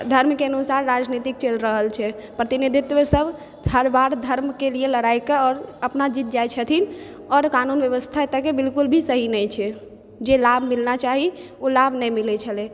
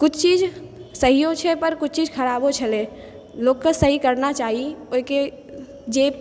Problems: background sounds at intervals